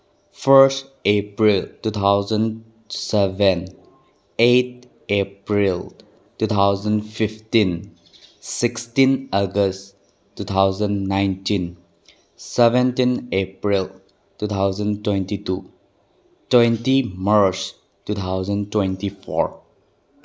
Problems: background sounds at intervals